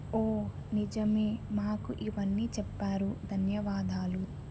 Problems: constant background noise, low volume